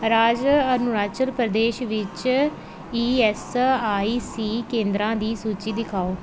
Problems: constant background noise